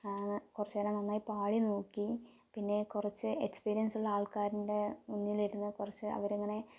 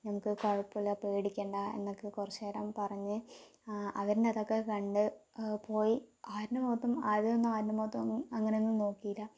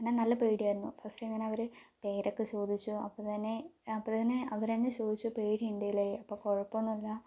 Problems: low volume